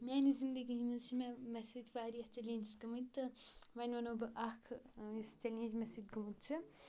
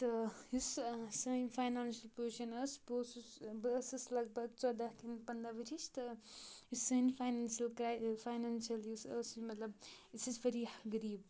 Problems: constant background noise